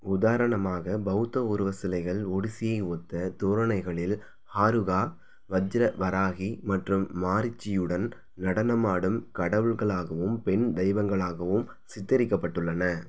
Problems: none marked